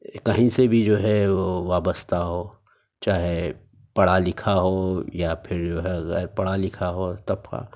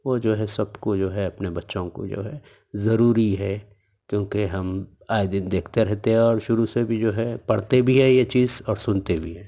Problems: none marked